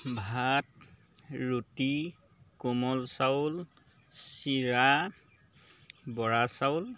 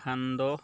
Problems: background sounds at intervals